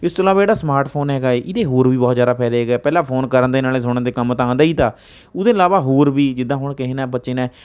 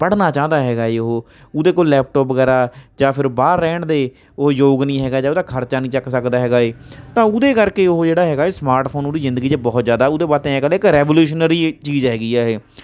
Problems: none marked